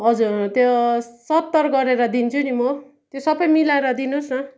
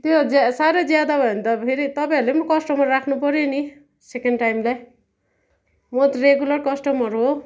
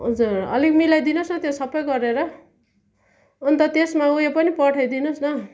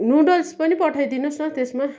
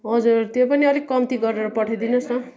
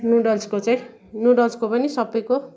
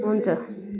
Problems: none marked